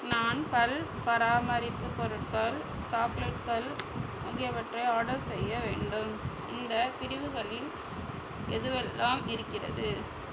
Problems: constant background noise